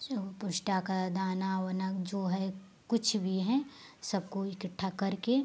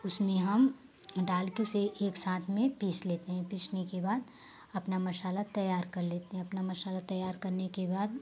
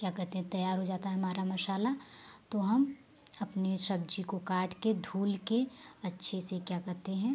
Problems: constant background noise